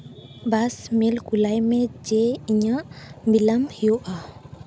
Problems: background sounds at intervals